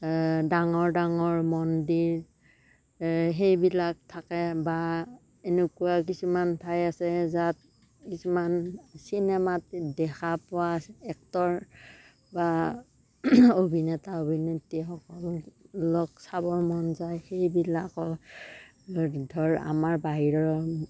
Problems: none marked